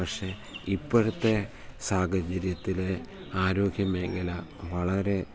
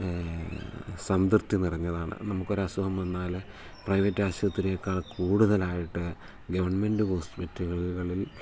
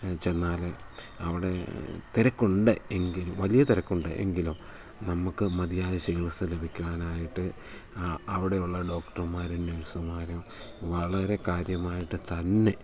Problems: none marked